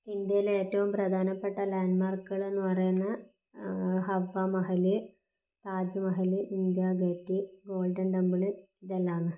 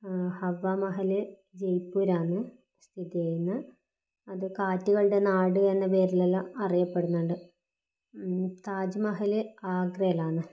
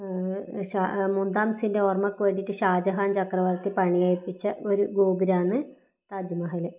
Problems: low volume